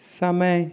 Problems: constant background noise